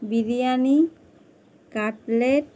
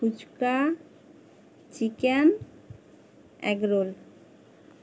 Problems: constant background noise